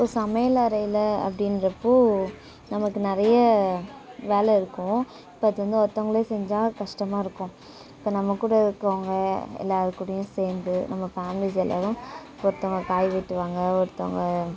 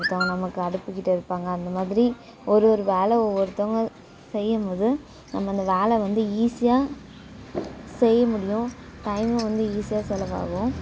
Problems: background sounds at intervals